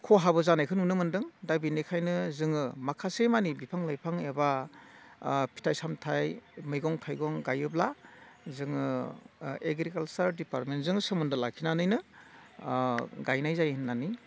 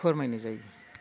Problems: constant background noise